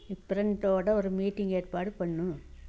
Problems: low volume